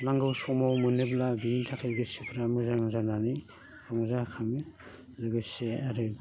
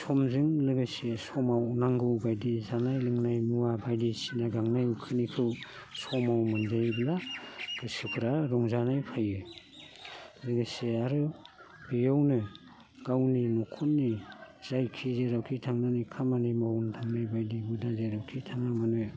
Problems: constant background noise